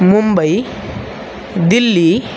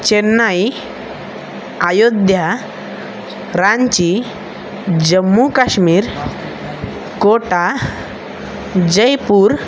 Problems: constant background noise, background conversations at intervals